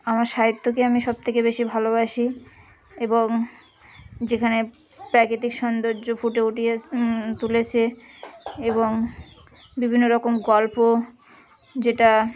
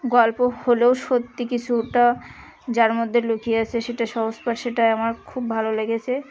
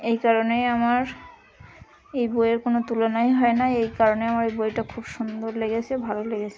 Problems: continuous background conversations